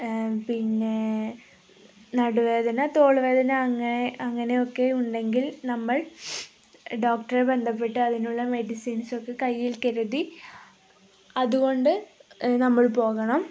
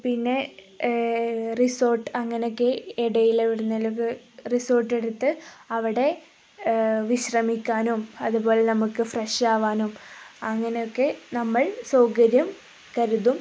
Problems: none marked